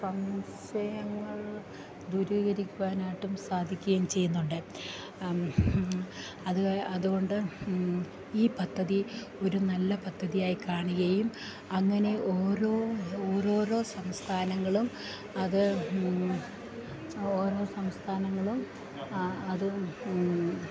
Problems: none marked